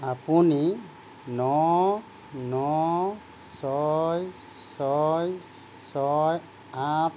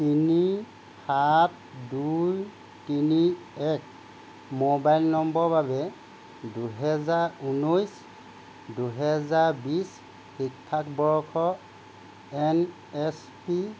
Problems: constant background noise